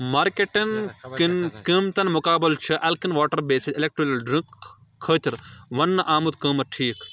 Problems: constant background noise